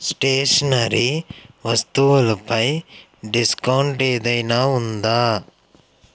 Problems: constant background noise